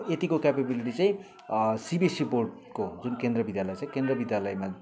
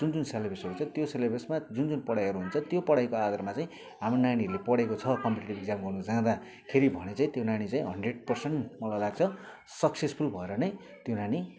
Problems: background sounds at intervals